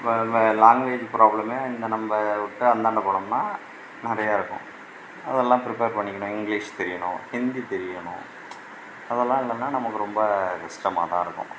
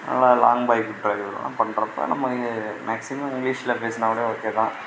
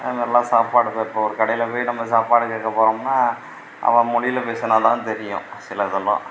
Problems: background sounds at intervals